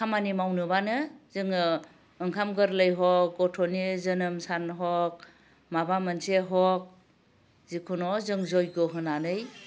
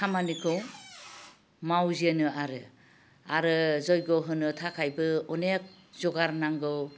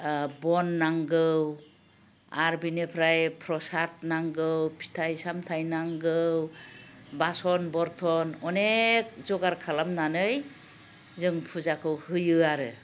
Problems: low volume